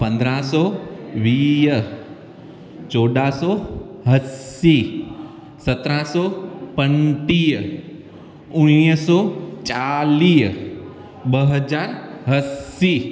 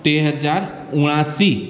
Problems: constant background noise, echo